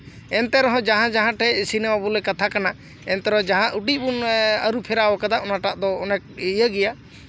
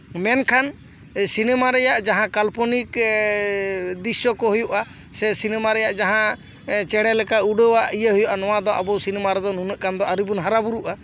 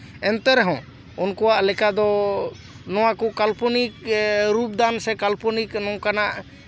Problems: background conversations at intervals